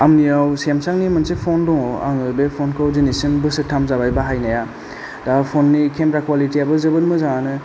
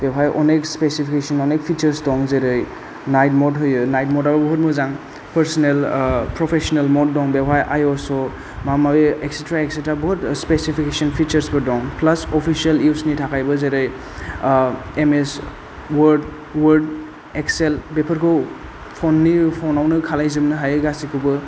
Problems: low volume